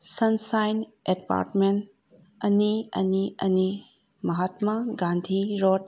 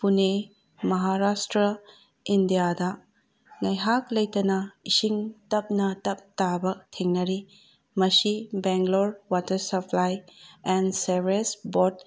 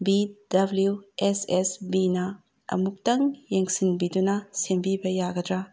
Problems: none marked